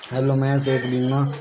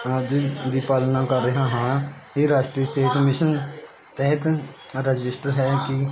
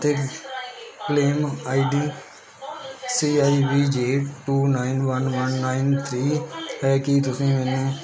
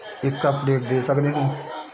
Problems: constant background noise